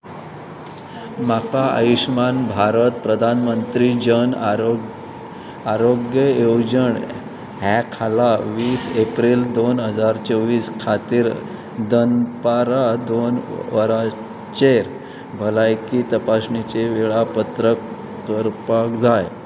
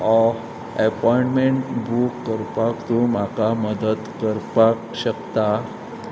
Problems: constant background noise